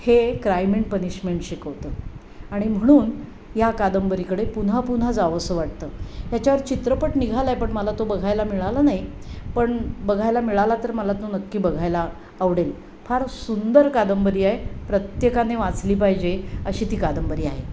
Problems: none marked